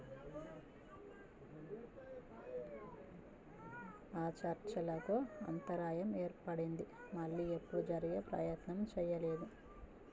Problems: background conversations at intervals, low volume